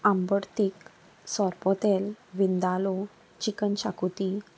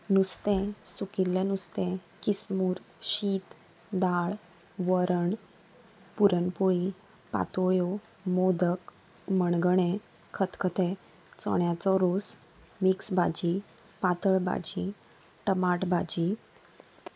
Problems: constant background noise